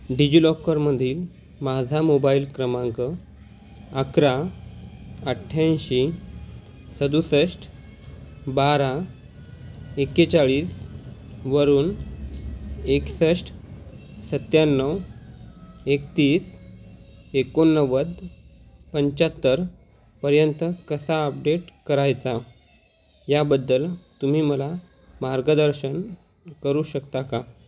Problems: none marked